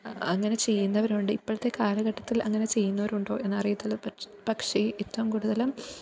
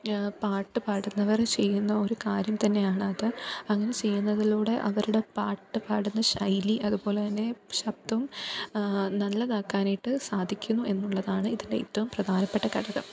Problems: background conversations at intervals, low volume